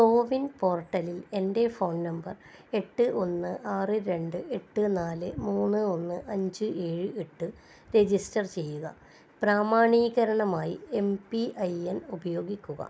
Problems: low volume